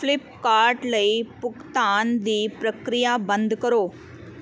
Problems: none marked